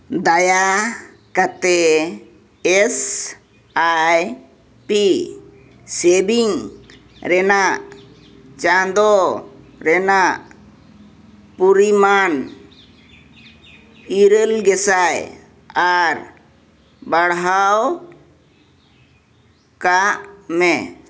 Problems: none marked